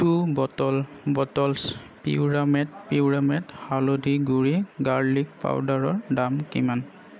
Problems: background conversations at intervals